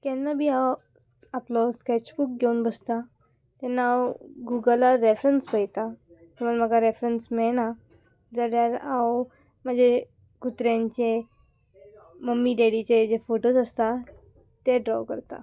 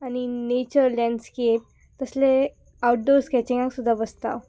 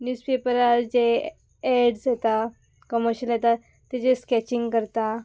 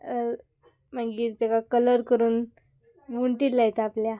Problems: background sounds at intervals